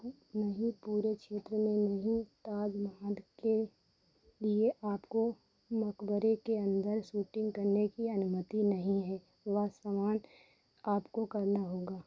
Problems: none marked